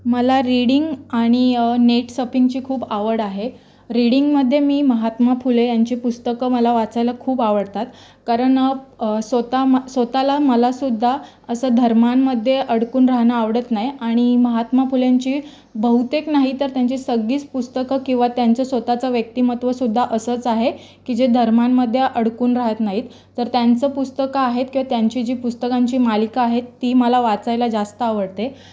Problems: background sounds at intervals, background conversations at intervals